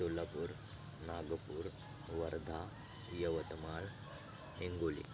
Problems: constant background noise